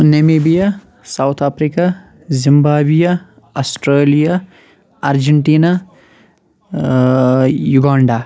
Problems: none marked